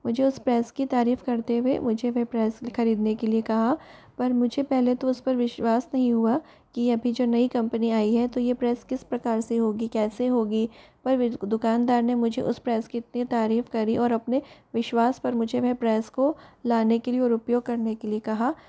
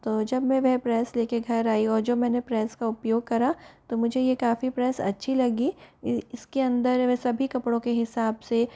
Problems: background conversations at intervals